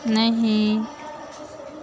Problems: constant background noise